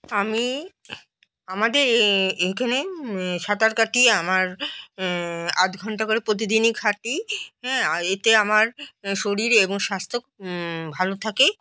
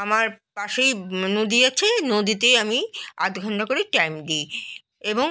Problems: background conversations at intervals